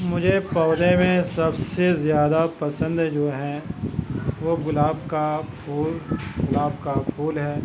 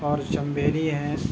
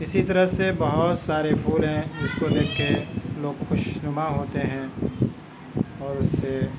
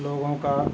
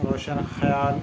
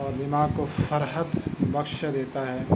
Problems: constant background noise, continuous background conversations, low volume